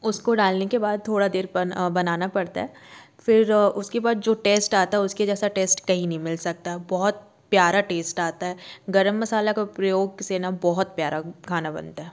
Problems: none marked